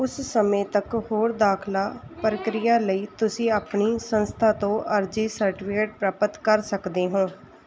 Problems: background sounds at intervals